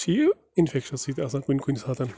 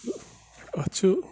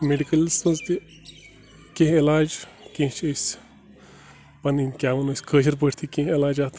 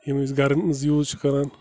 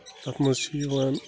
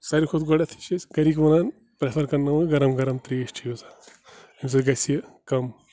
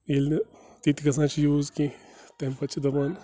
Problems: constant background noise, low volume